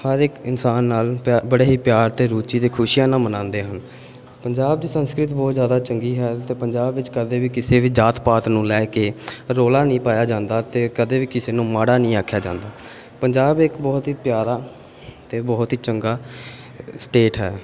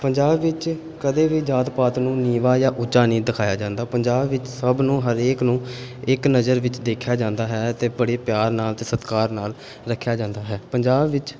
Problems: background sounds at intervals